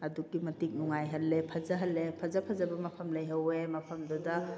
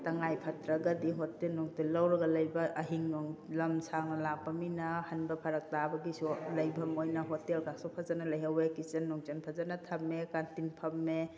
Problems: background conversations at intervals